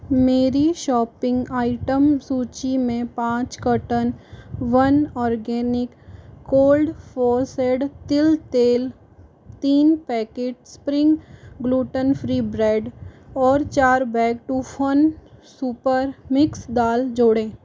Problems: constant background noise